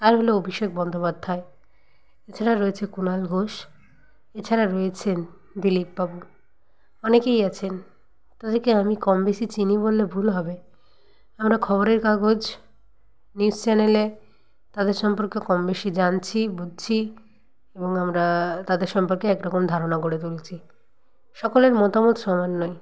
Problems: background conversations at intervals